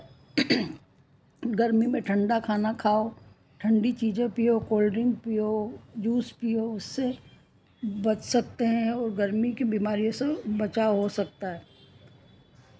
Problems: none marked